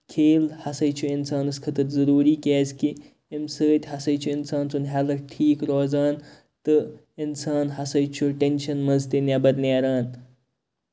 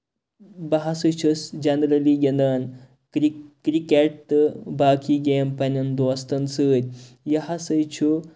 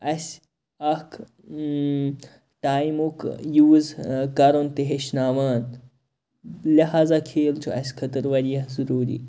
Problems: constant background noise